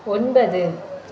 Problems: none marked